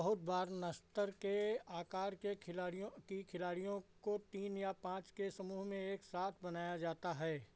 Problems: low volume